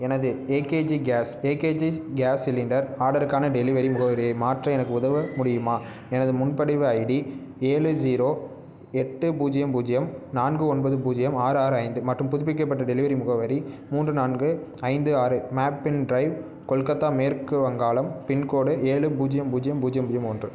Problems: none marked